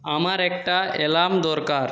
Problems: none marked